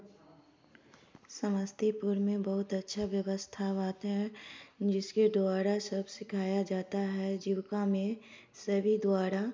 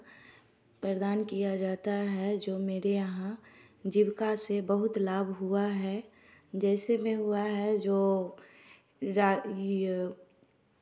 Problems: none marked